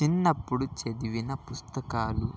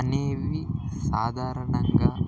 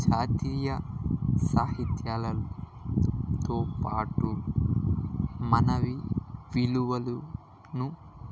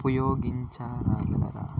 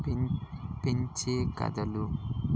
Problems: constant background noise